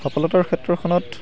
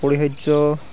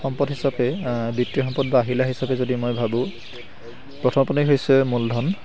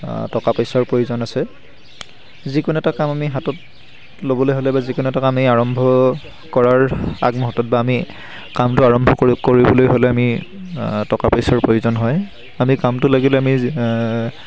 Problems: constant background noise